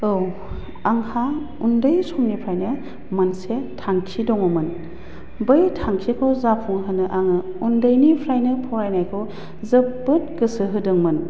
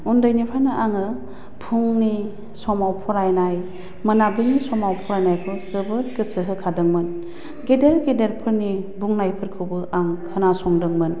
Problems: low volume